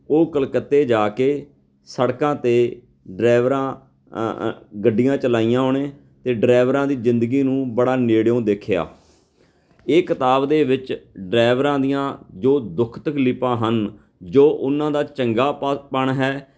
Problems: background sounds at intervals, background conversations at intervals